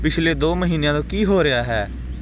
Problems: constant background noise